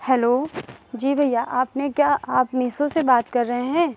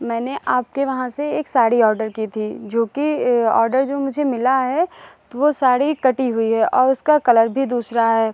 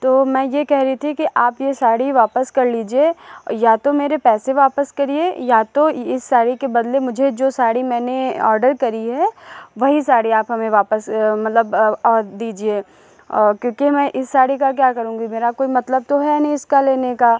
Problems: background sounds at intervals, echo